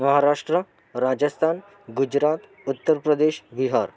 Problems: background sounds at intervals, continuous background conversations